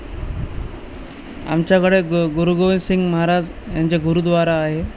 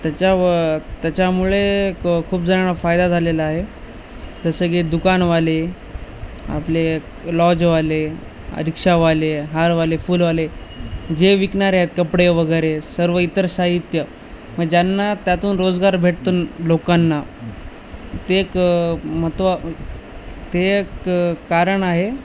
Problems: none marked